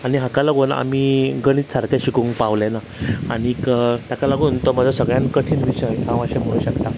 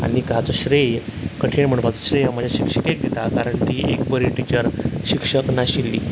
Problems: constant background noise